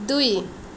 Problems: background sounds at intervals